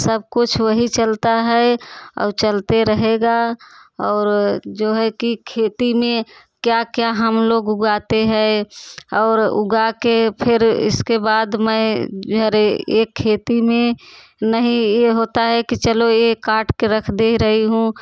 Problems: background sounds at intervals, background conversations at intervals